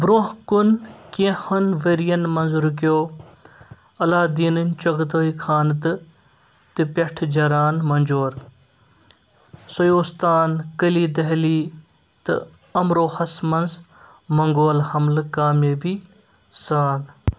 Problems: none marked